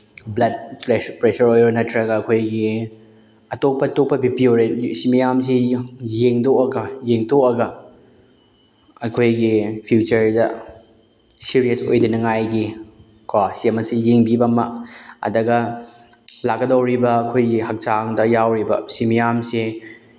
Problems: none marked